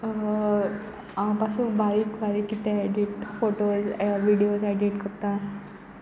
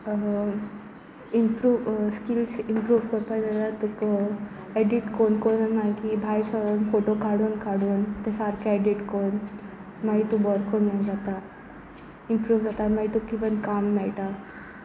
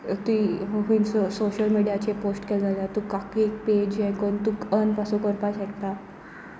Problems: constant background noise, background conversations at intervals